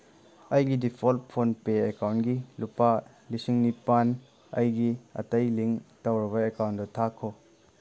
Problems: none marked